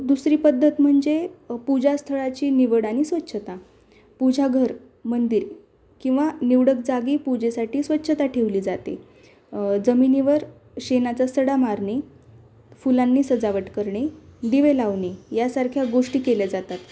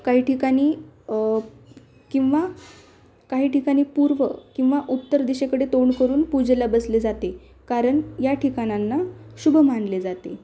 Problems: background sounds at intervals